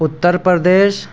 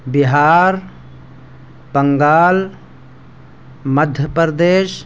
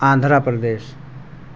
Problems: constant background noise